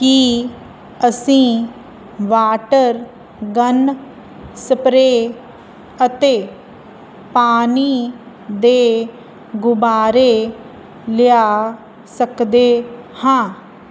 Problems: none marked